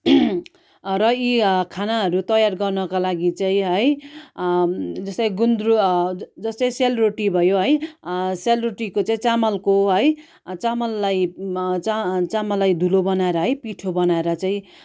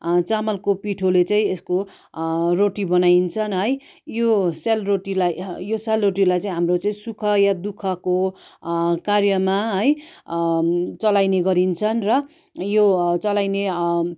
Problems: none marked